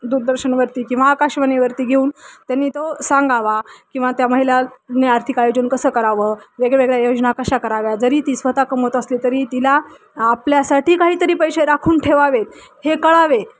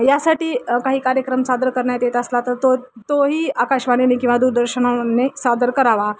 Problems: constant background noise